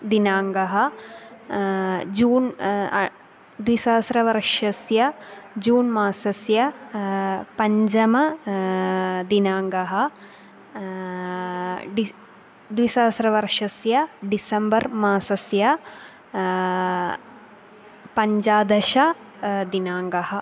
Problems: constant background noise